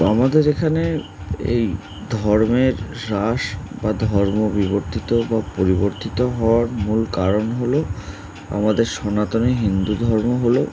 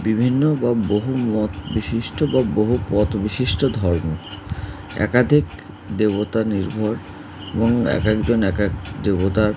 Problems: none marked